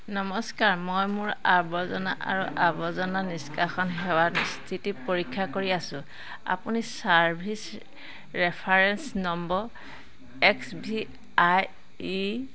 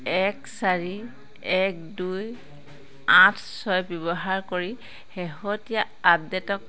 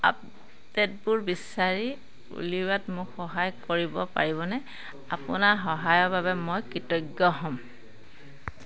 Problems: constant background noise, background conversations at intervals